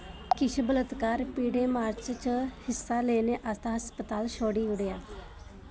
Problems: constant background noise